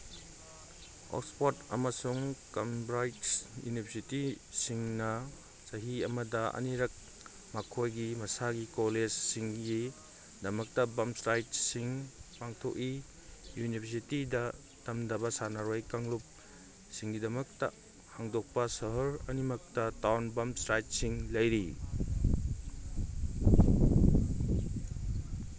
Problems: background sounds at intervals